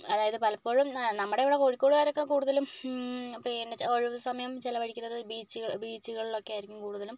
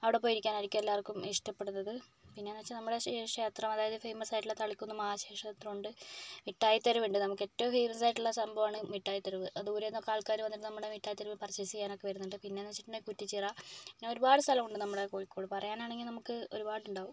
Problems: low volume